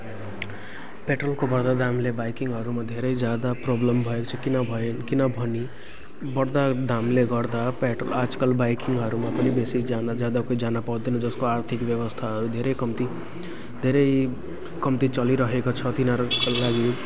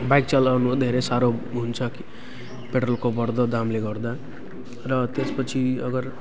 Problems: continuous background conversations